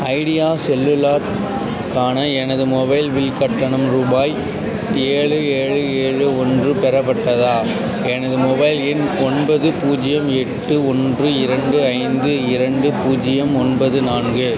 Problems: constant background noise, continuous background conversations